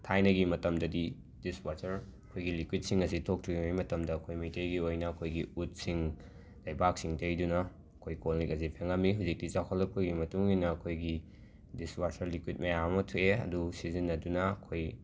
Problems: background sounds at intervals